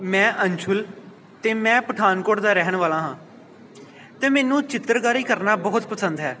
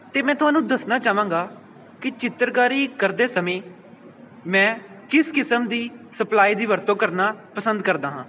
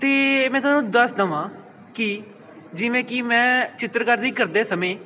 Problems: background sounds at intervals